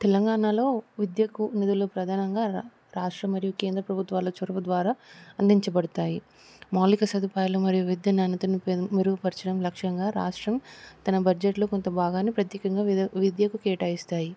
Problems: constant background noise